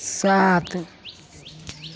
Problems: constant background noise